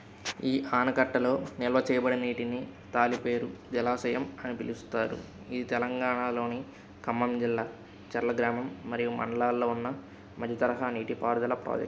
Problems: none marked